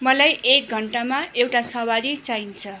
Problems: background sounds at intervals